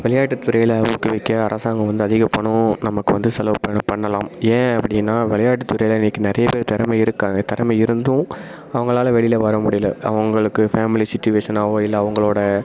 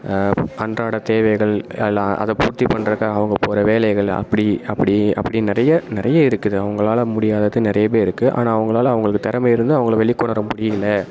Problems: constant background noise